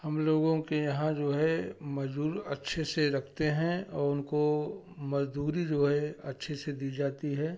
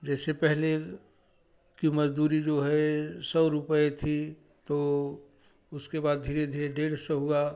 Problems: none marked